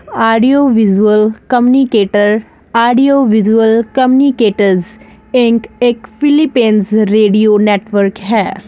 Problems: constant background noise